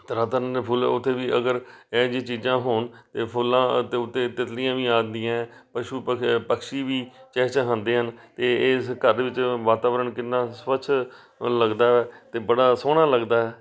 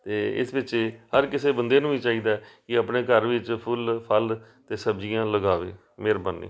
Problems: background sounds at intervals, background conversations at intervals